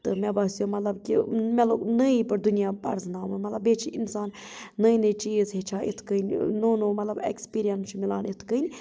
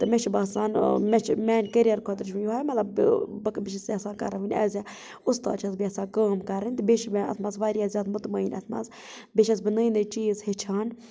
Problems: background sounds at intervals